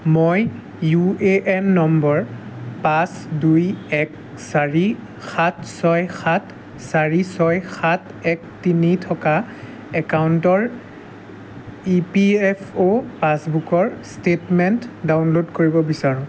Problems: constant background noise